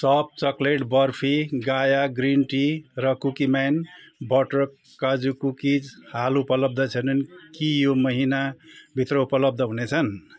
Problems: constant background noise